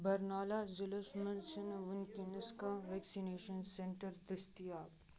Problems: background conversations at intervals